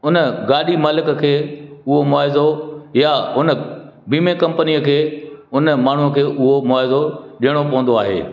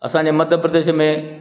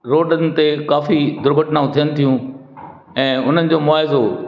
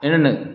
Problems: constant background noise, echo